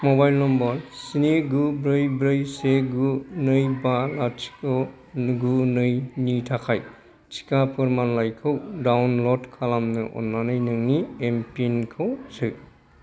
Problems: none marked